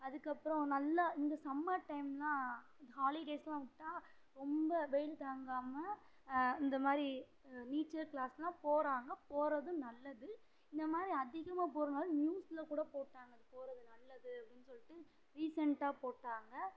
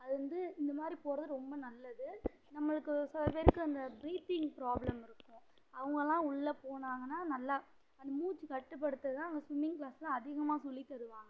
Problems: low volume